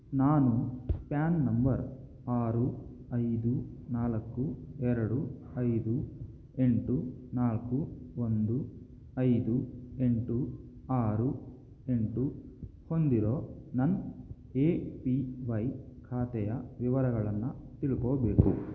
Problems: low volume